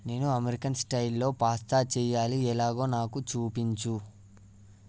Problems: none marked